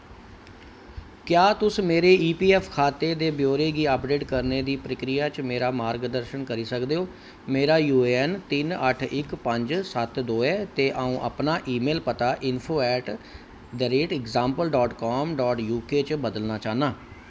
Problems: constant background noise